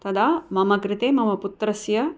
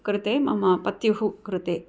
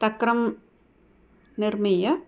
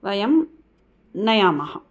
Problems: none marked